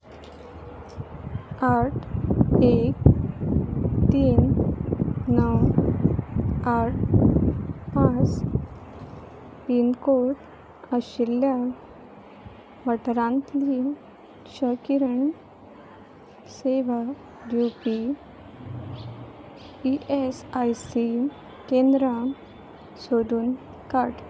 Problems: constant background noise